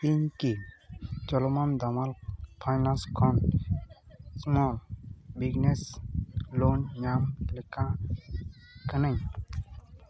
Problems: background sounds at intervals, continuous background conversations